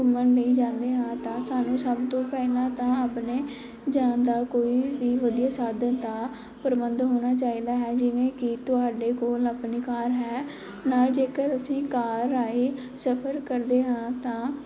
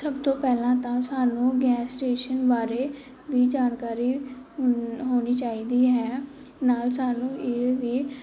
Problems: background sounds at intervals